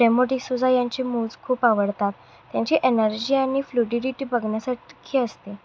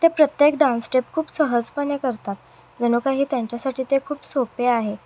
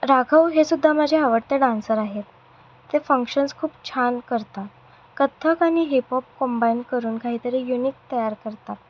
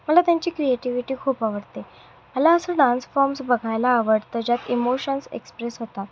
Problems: none marked